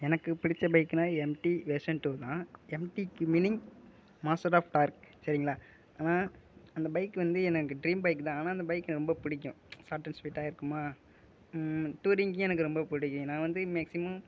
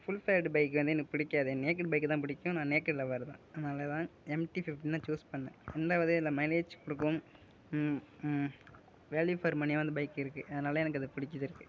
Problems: none marked